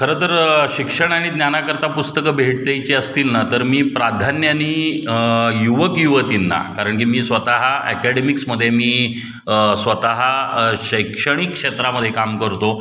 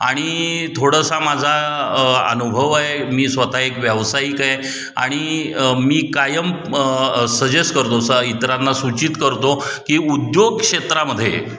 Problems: background sounds at intervals